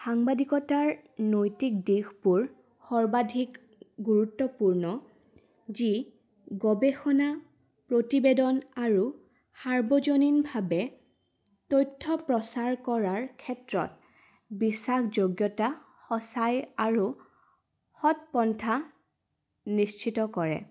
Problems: none marked